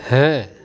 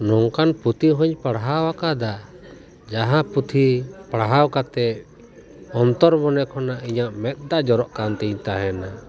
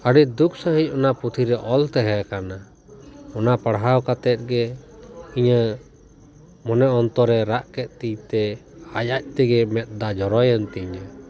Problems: background sounds at intervals, continuous background conversations